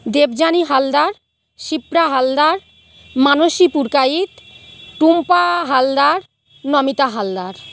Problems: background sounds at intervals